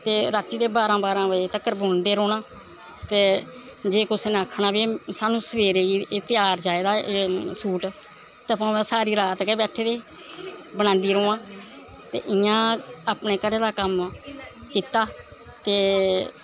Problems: none marked